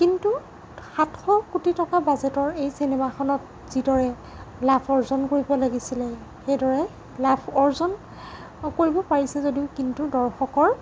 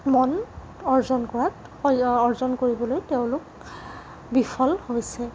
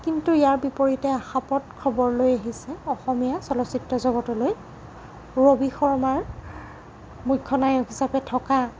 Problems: constant background noise